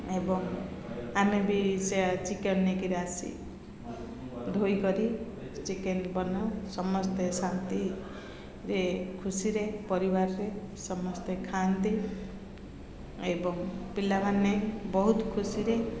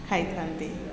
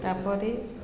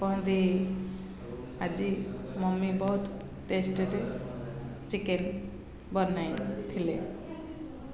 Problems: constant background noise, continuous background conversations